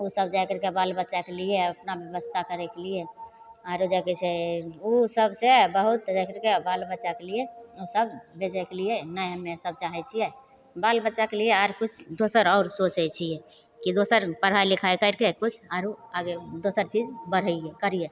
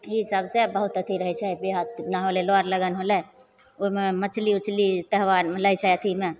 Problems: none marked